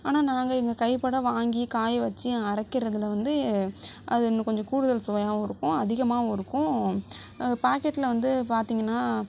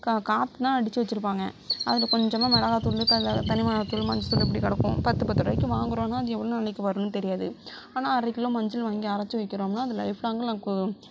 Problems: none marked